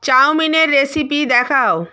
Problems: none marked